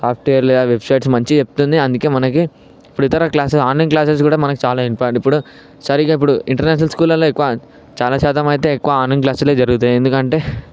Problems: background sounds at intervals